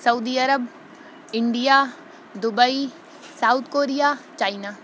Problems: none marked